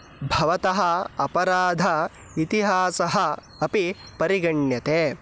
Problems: background sounds at intervals